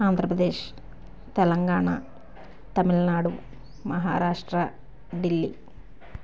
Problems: none marked